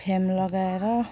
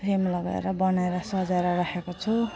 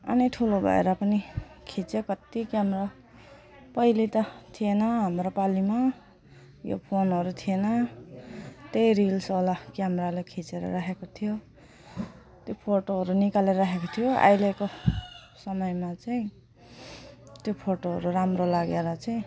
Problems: none marked